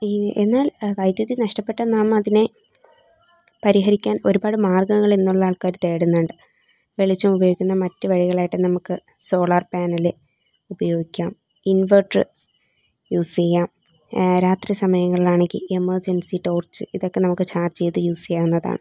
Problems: background sounds at intervals